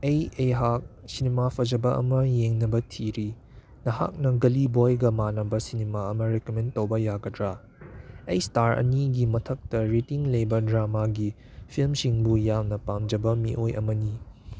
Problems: none marked